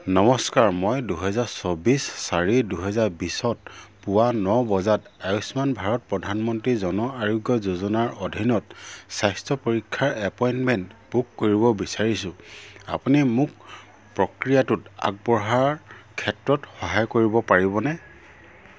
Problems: low volume